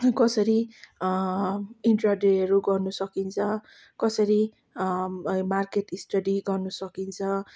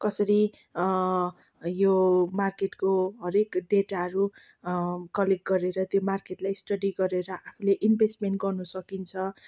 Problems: none marked